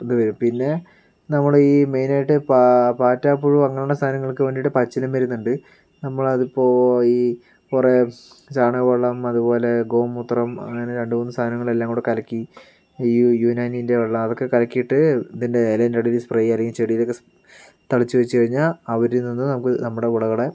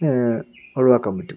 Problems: none marked